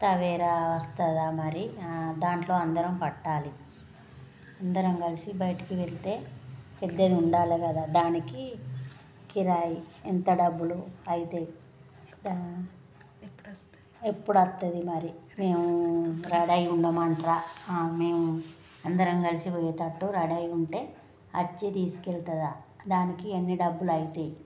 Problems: none marked